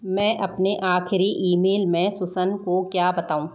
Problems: none marked